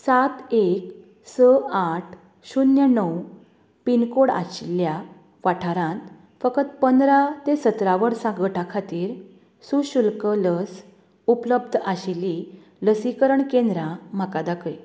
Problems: constant background noise